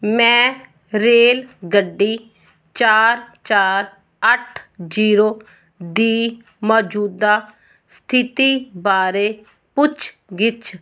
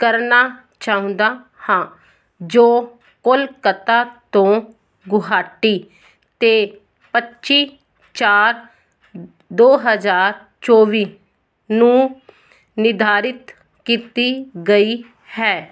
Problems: none marked